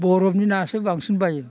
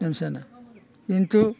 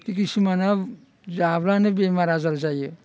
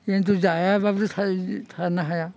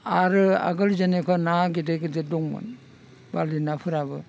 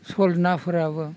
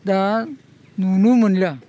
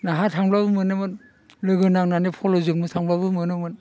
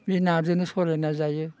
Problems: constant background noise